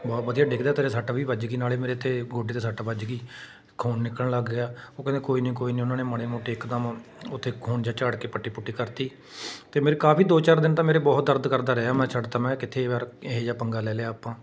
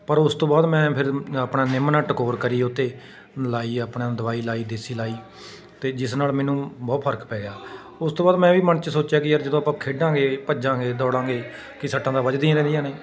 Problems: background conversations at intervals